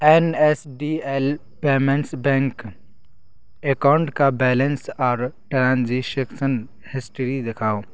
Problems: constant background noise